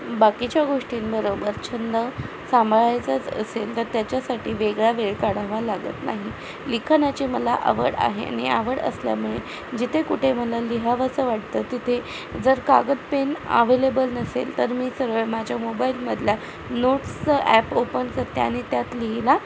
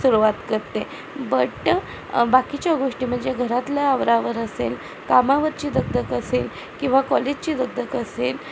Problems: constant background noise